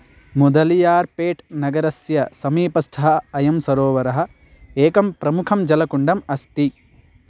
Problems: none marked